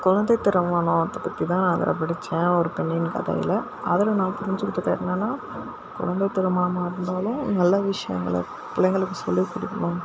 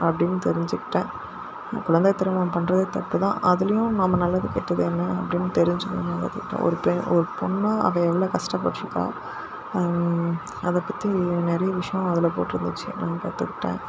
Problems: constant background noise